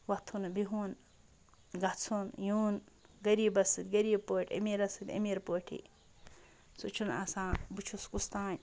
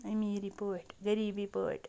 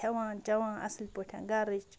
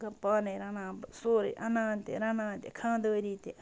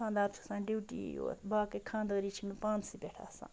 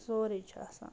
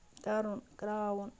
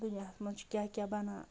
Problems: background sounds at intervals